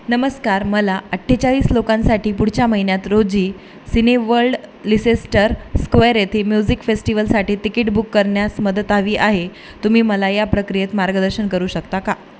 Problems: none marked